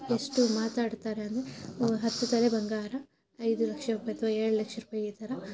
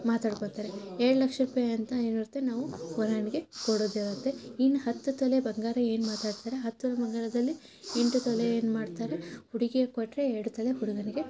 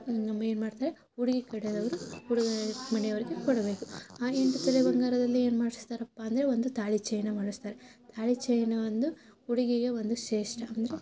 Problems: constant background noise, low volume